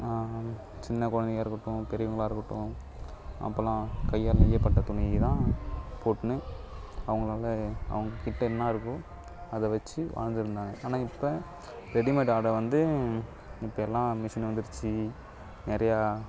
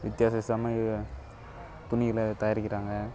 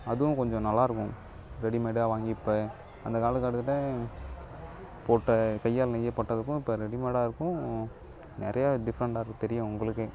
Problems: background conversations at intervals